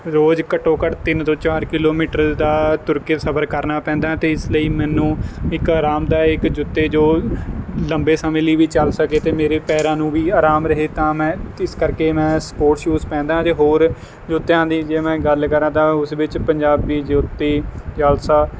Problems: none marked